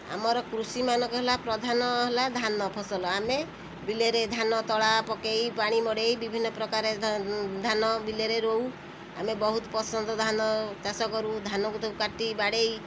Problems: constant background noise